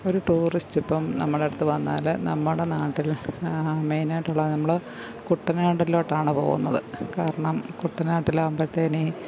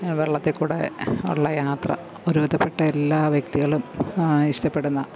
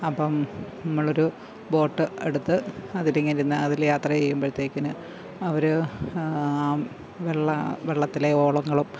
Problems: constant background noise, background conversations at intervals